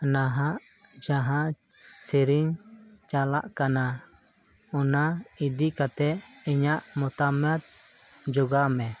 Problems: constant background noise